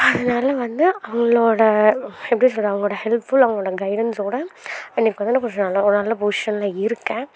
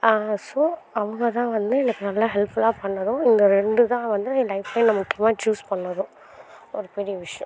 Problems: constant background noise